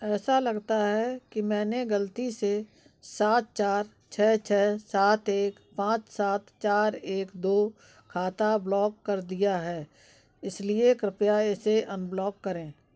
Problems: background sounds at intervals, background conversations at intervals